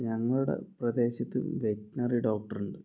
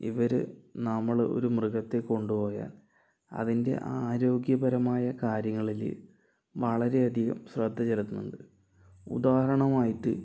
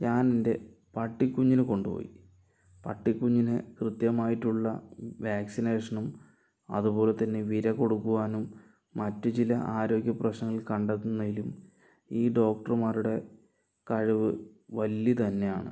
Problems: low volume